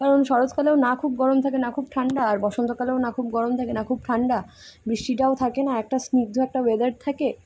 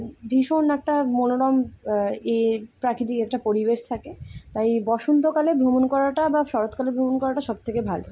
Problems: none marked